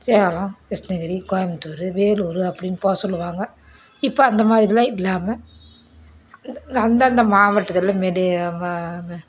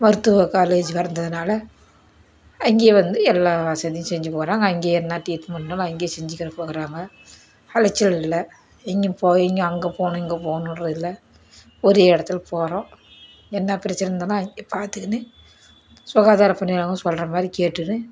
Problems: background sounds at intervals